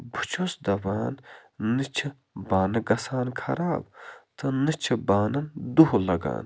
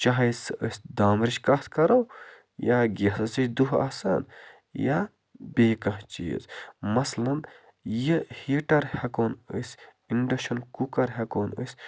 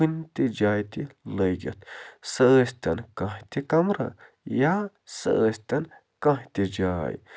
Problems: constant background noise